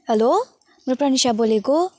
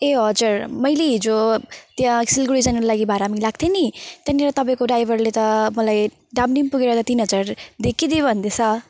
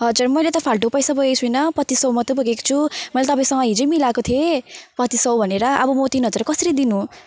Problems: constant background noise